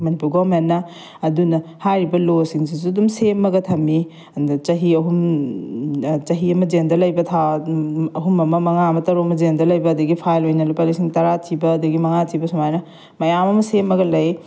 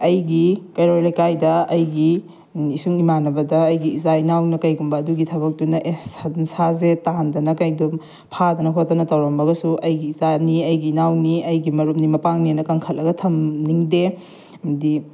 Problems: background sounds at intervals